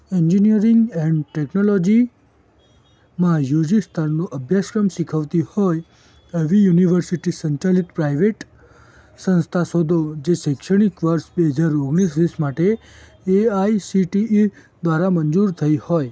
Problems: background sounds at intervals